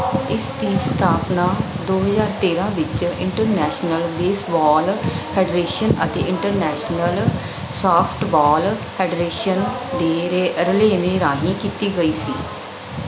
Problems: none marked